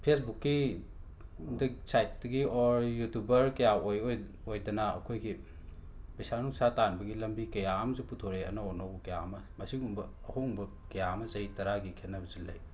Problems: constant background noise